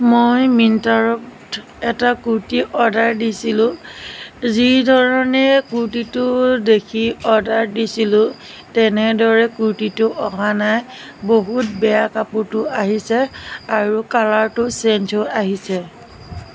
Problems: constant background noise